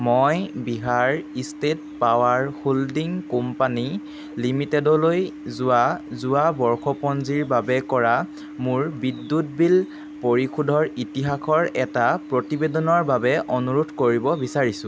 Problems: none marked